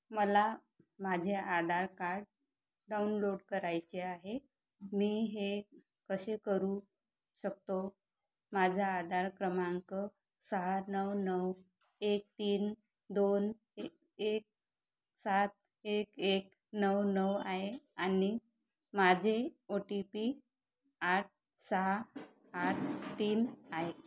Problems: constant background noise